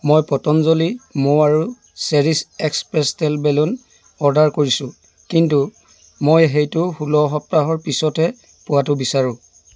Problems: background sounds at intervals